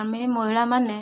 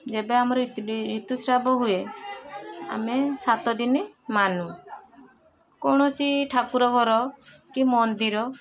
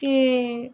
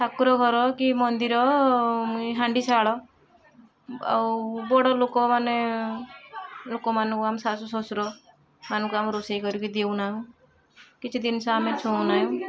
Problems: constant background noise, continuous background conversations